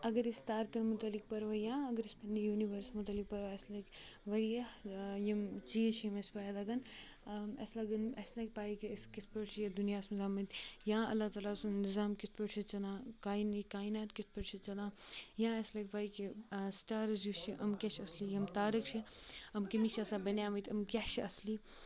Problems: constant background noise, continuous background conversations